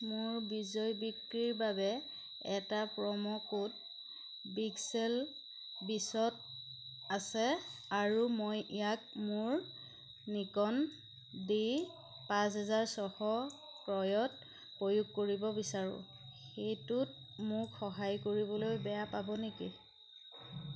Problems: constant background noise